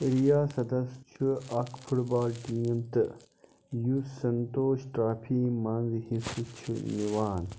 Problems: constant background noise